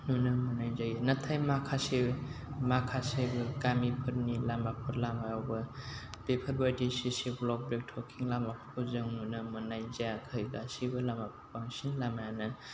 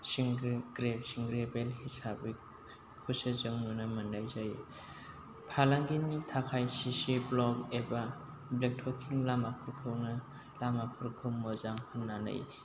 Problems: constant background noise, low volume